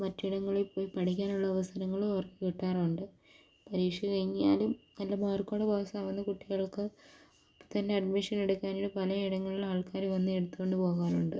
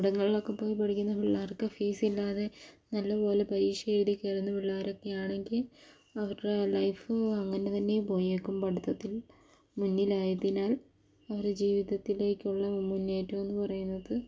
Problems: none marked